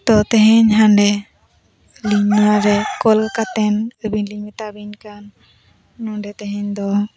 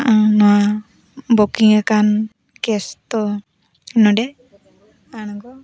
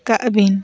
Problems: background sounds at intervals, background conversations at intervals